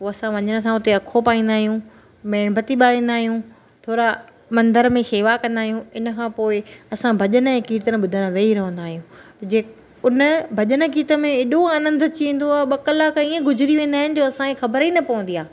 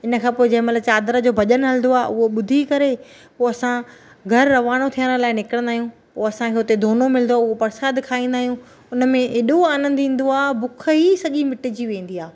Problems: none marked